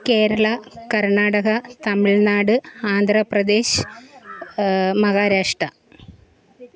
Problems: background conversations at intervals